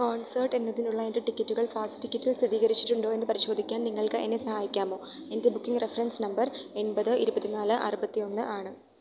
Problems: none marked